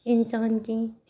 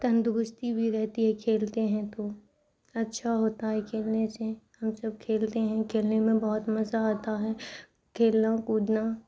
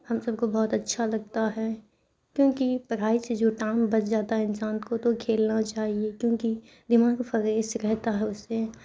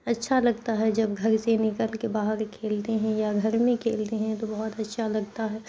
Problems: constant background noise